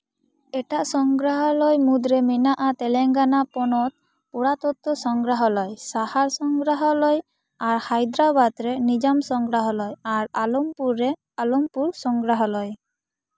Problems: none marked